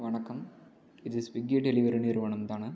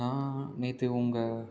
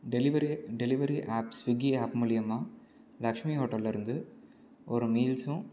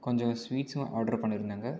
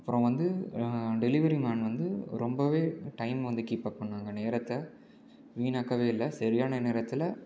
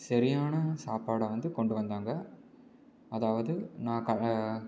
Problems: low volume